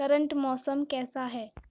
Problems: none marked